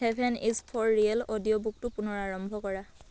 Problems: none marked